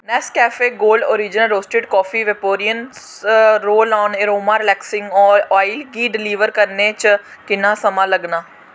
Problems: constant background noise